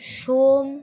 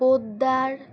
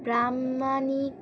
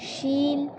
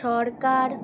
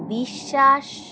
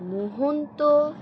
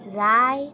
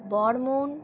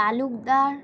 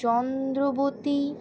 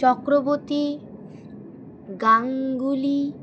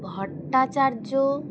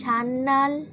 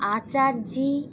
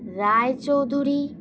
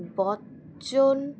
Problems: constant background noise